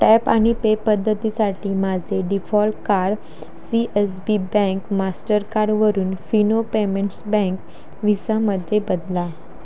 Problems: constant background noise